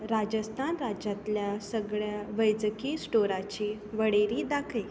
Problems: background sounds at intervals